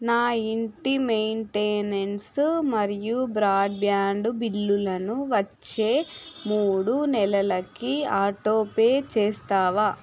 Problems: none marked